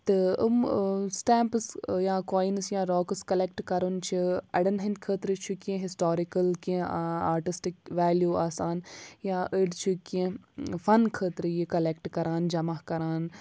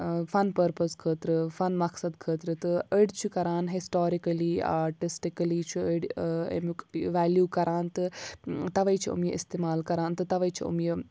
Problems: background sounds at intervals